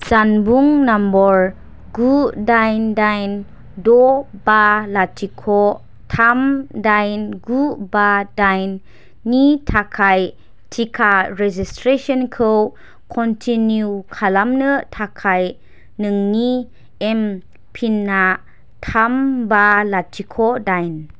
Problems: constant background noise